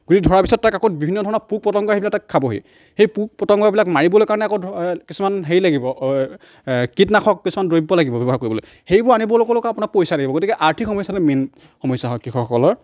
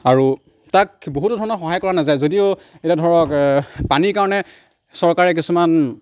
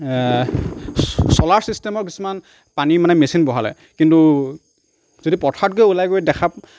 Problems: none marked